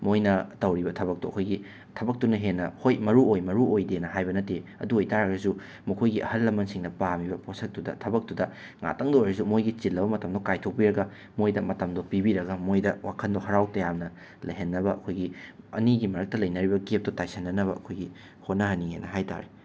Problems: constant background noise